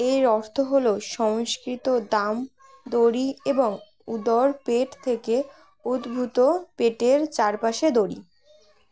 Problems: continuous background conversations